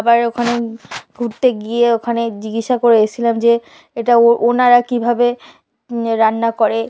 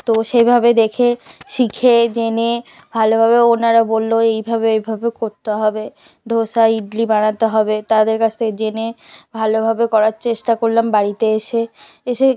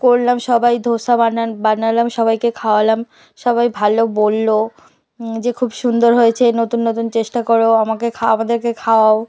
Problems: background conversations at intervals